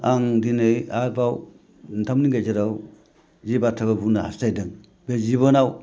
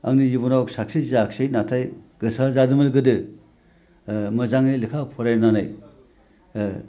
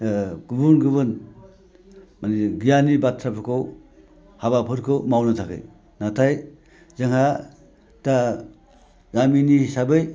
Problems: none marked